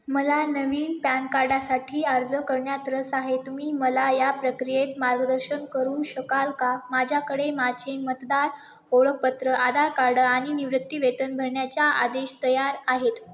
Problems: none marked